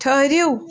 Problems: none marked